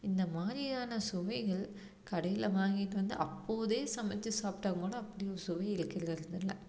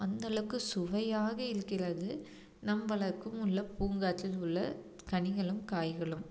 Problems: low volume